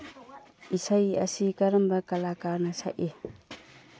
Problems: low volume